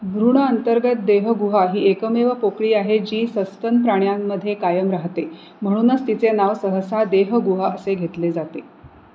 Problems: none marked